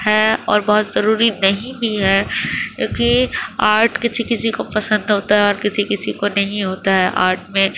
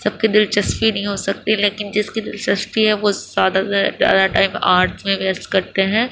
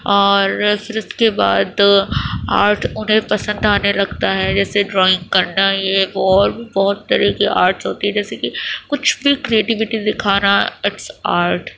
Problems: constant background noise